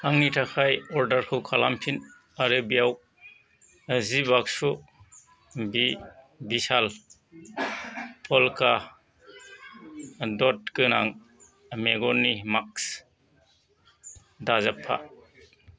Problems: background conversations at intervals